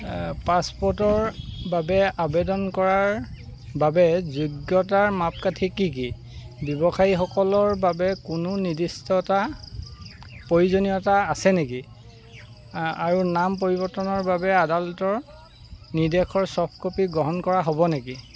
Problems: constant background noise